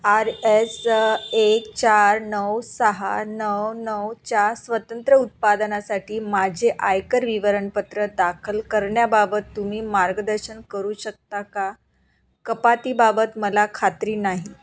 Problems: constant background noise